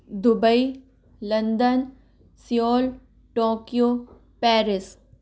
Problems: background sounds at intervals